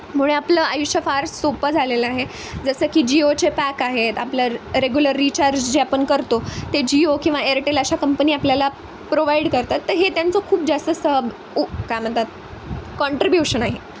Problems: constant background noise